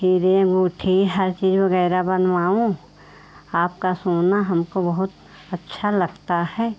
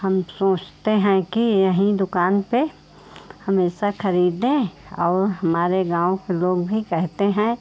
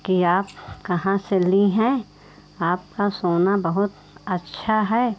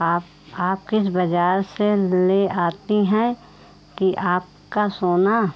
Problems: none marked